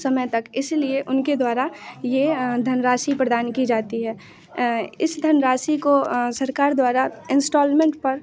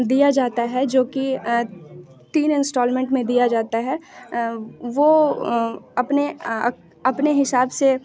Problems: constant background noise, continuous background conversations